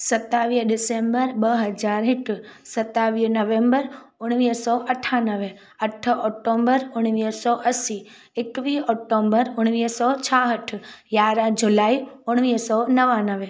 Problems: none marked